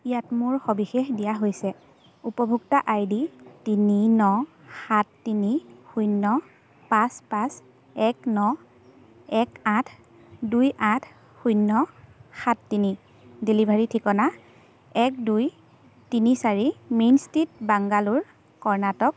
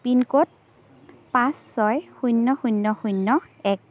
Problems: constant background noise, background conversations at intervals